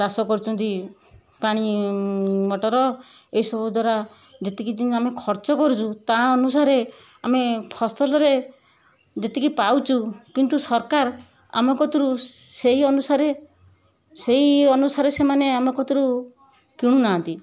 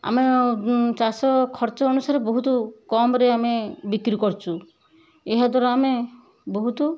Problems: none marked